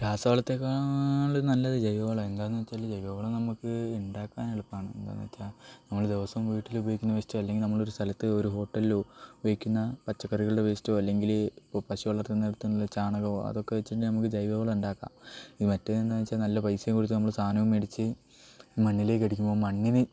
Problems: none marked